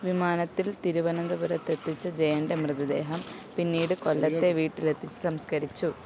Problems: constant background noise, low volume